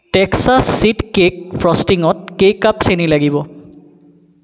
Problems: background sounds at intervals